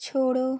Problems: background sounds at intervals